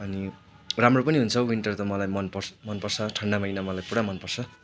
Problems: none marked